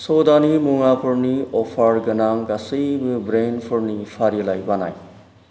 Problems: background sounds at intervals